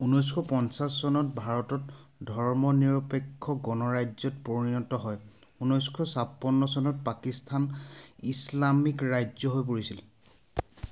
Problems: background sounds at intervals